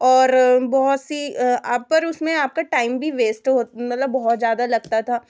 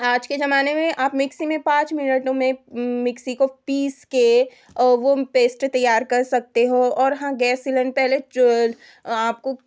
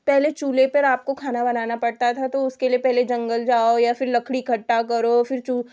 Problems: none marked